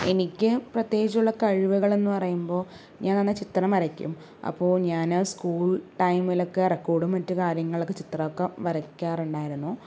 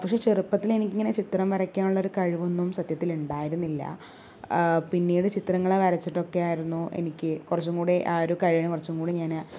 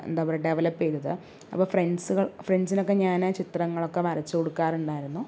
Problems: low volume